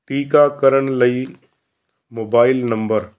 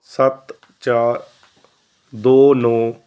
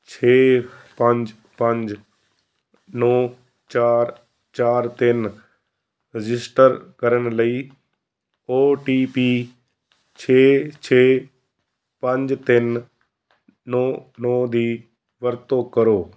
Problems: background sounds at intervals